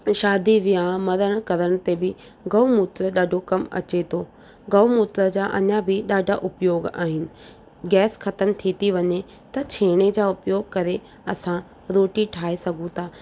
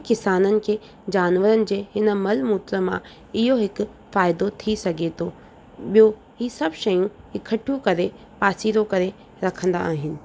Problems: constant background noise